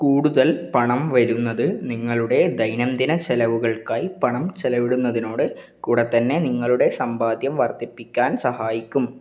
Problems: none marked